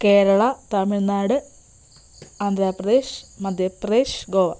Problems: background sounds at intervals